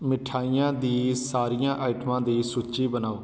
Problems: constant background noise